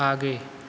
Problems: none marked